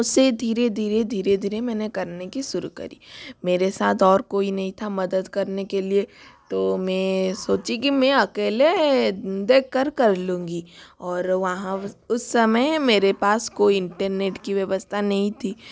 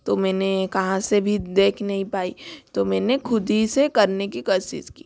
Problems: constant background noise